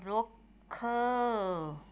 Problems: background sounds at intervals